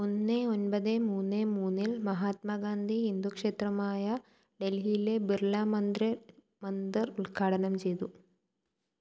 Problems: low volume